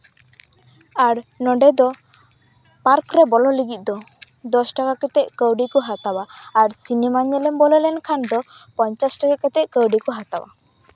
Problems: background sounds at intervals